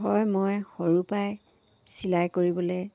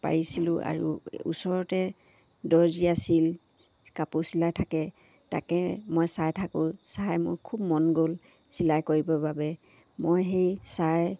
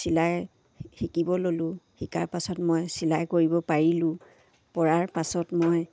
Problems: constant background noise